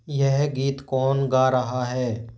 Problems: constant background noise